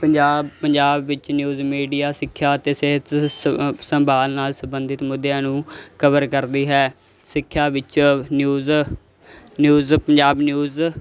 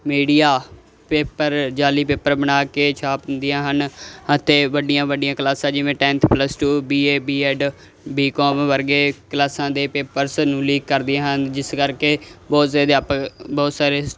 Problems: constant background noise